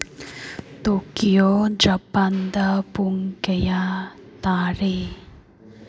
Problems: none marked